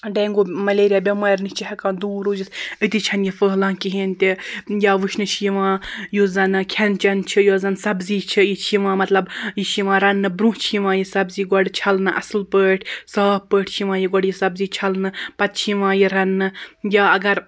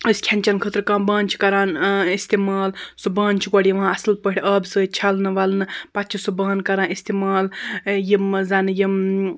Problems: constant background noise